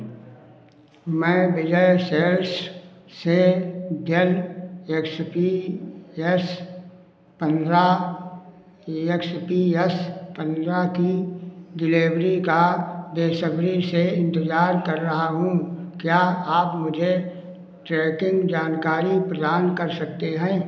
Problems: constant background noise